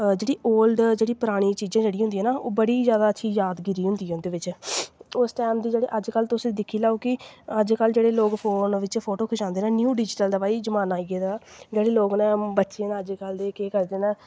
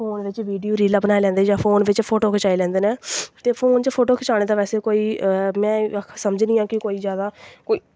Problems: none marked